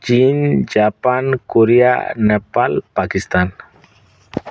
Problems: none marked